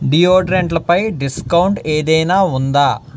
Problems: background sounds at intervals